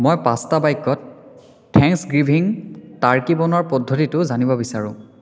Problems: continuous background conversations